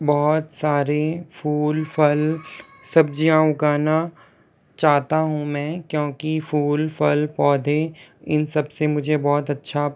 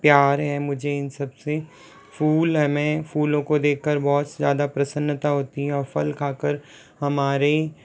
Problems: none marked